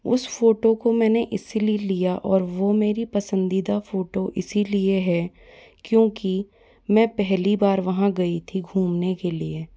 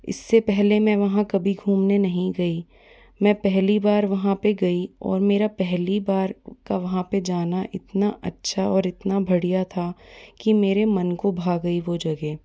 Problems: background sounds at intervals